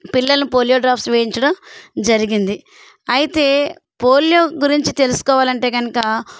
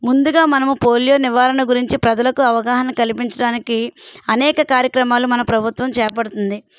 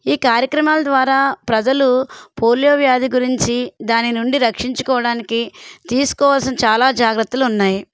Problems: none marked